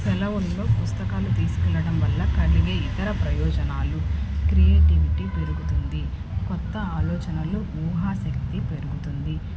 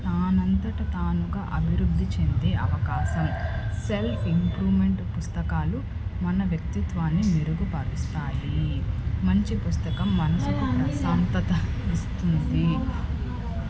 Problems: constant background noise